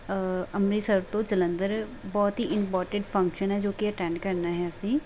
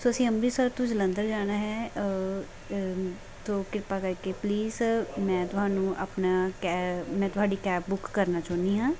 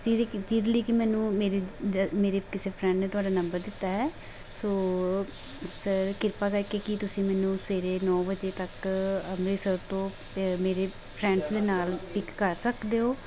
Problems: none marked